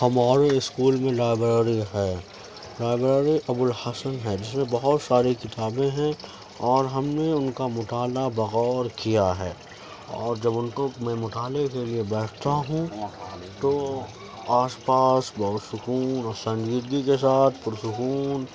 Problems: constant background noise